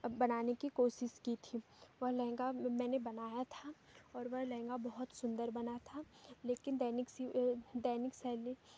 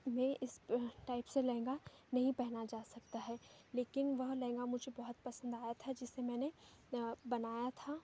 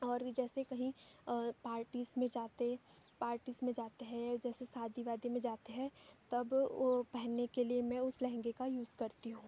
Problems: background sounds at intervals